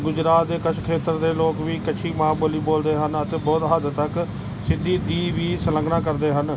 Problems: background sounds at intervals